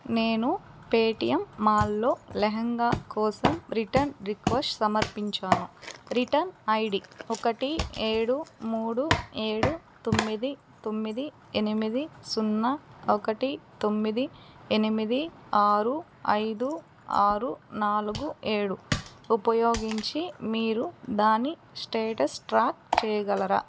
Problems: none marked